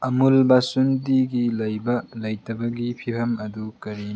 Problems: low volume